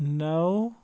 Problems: background sounds at intervals